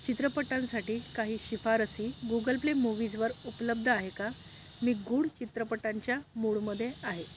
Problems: constant background noise